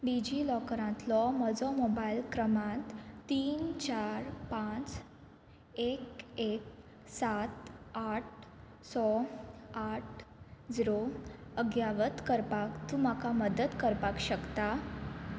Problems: constant background noise